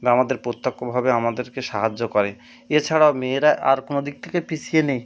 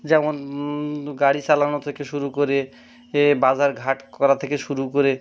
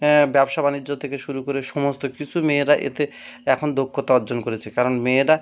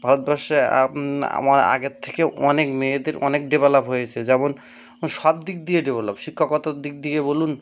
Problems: background sounds at intervals